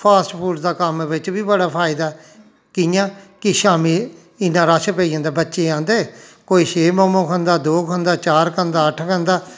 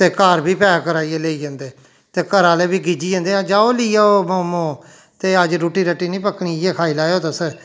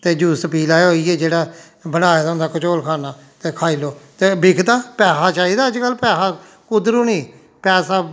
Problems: none marked